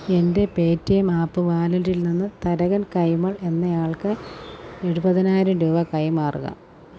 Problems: constant background noise